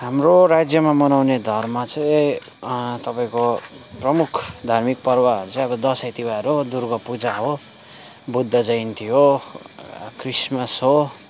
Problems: constant background noise